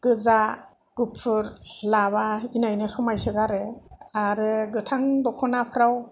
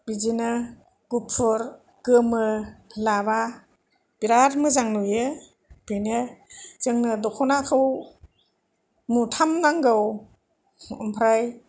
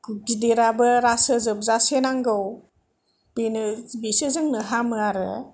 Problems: none marked